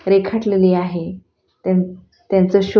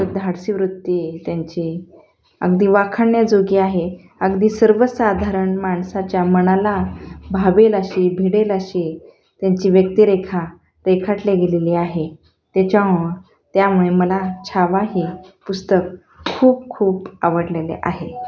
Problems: constant background noise, continuous background conversations